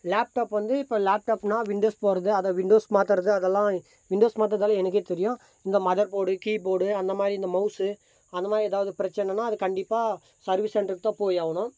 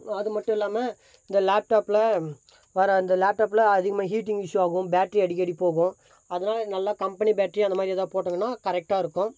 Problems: constant background noise